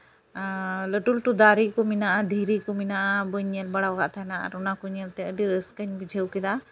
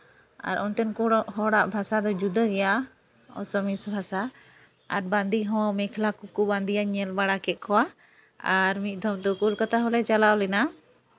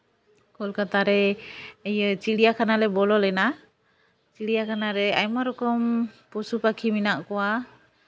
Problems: background sounds at intervals